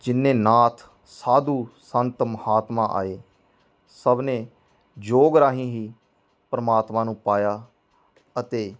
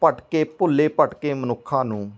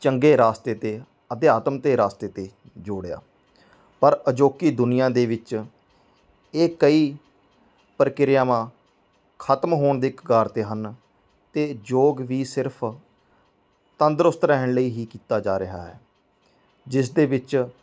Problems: background sounds at intervals